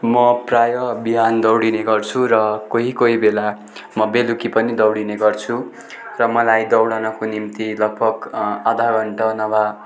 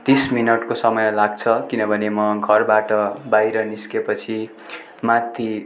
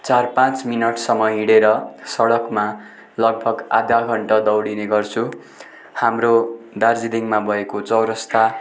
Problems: continuous background conversations